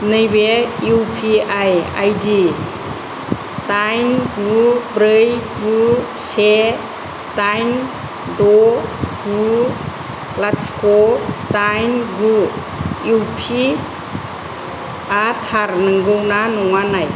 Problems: constant background noise, low volume